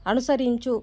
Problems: none marked